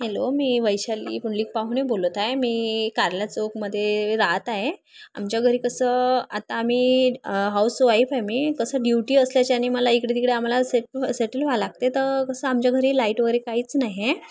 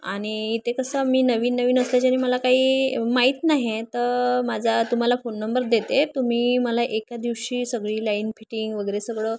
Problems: constant background noise